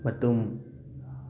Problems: constant background noise